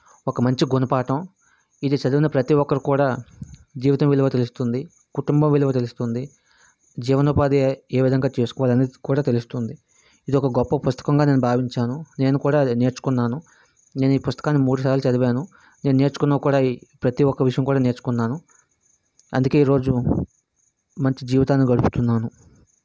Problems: constant background noise